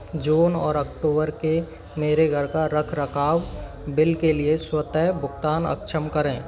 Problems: constant background noise, background conversations at intervals